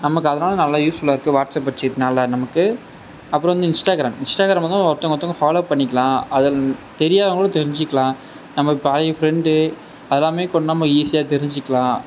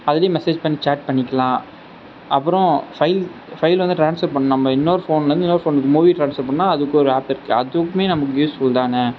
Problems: constant background noise